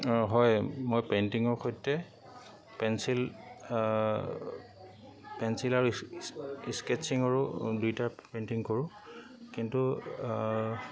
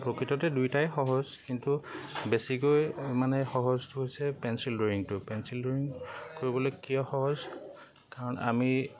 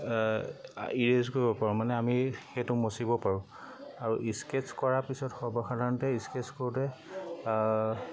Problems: constant background noise, background conversations at intervals